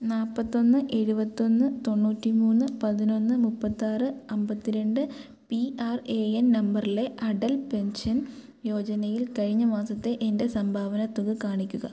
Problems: none marked